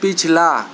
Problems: constant background noise